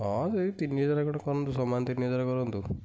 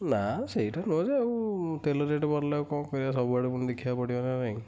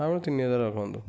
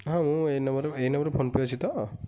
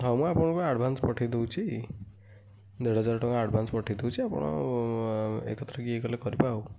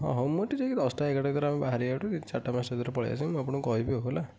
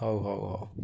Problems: none marked